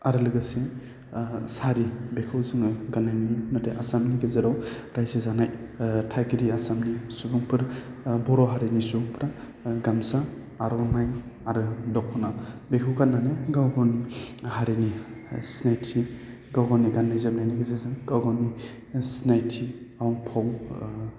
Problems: low volume